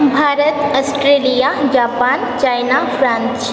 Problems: constant background noise